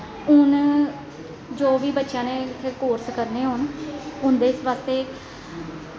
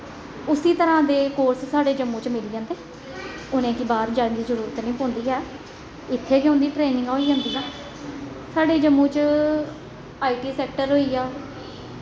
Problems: constant background noise, echo